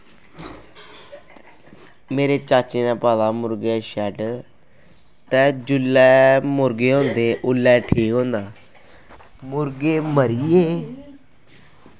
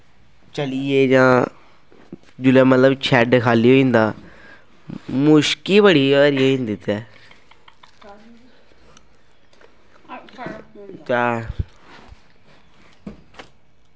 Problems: constant background noise